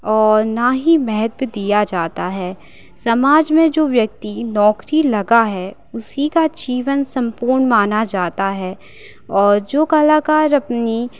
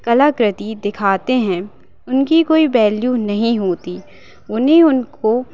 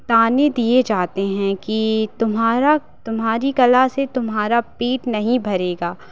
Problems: constant background noise